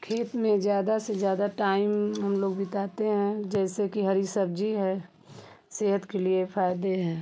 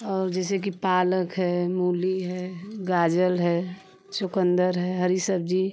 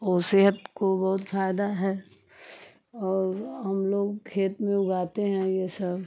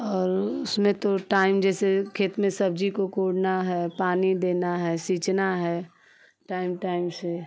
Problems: constant background noise